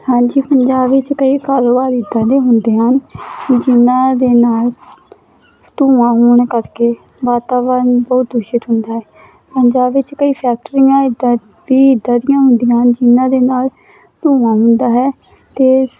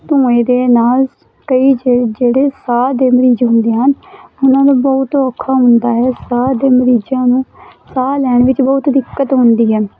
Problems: constant background noise